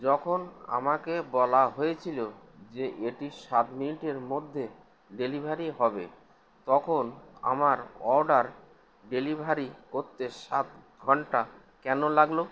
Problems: constant background noise